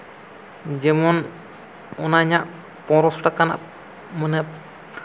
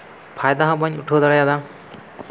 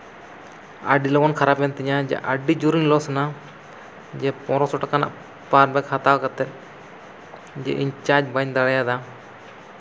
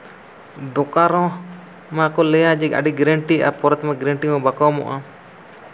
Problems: none marked